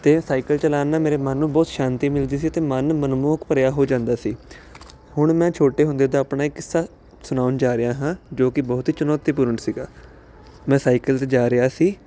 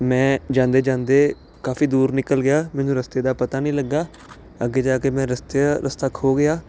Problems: constant background noise